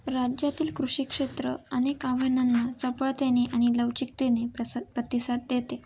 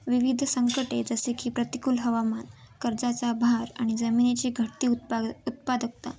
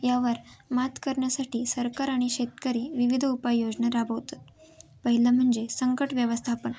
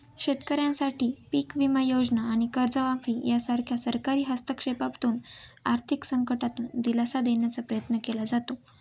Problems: none marked